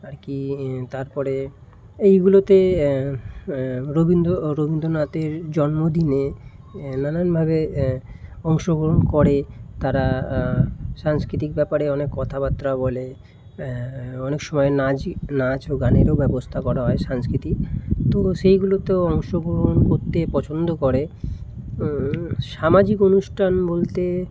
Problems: background sounds at intervals